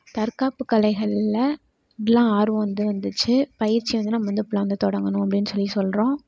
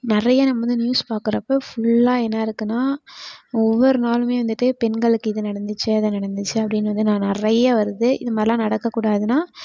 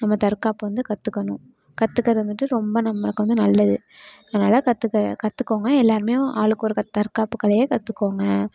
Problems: background sounds at intervals